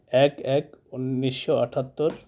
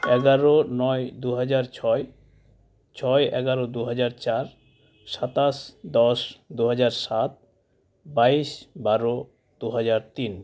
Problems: background sounds at intervals